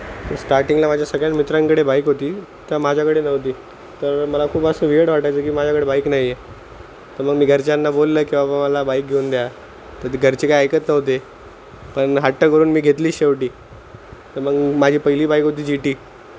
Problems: constant background noise